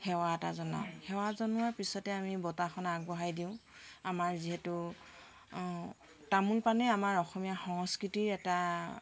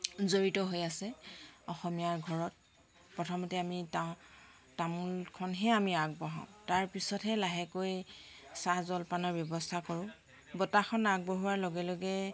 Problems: constant background noise, background conversations at intervals